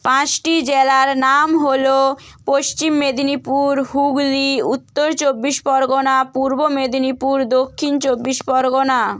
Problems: none marked